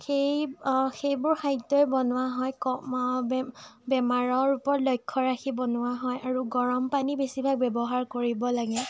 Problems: none marked